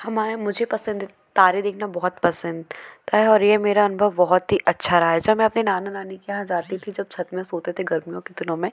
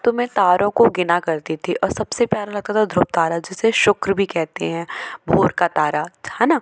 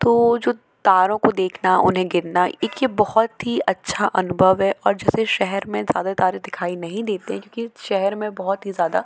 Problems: none marked